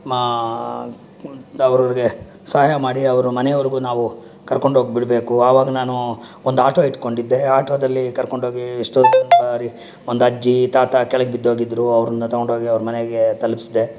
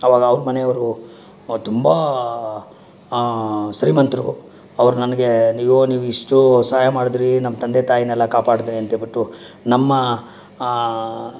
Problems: background sounds at intervals